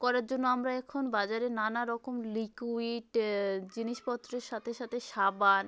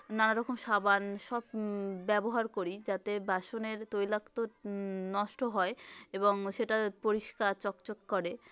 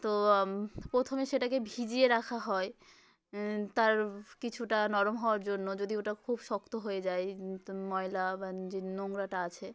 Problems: continuous background conversations